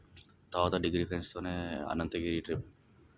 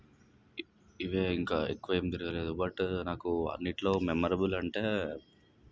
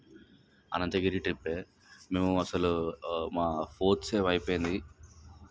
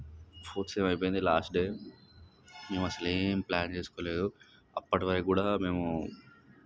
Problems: background sounds at intervals